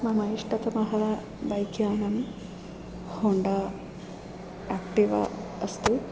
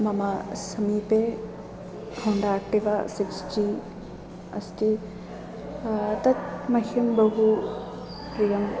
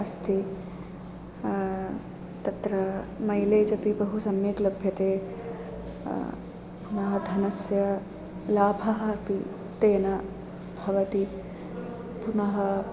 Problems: constant background noise